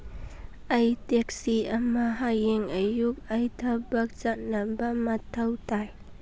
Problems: none marked